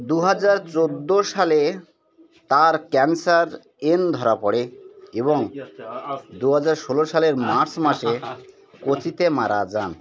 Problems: background conversations at intervals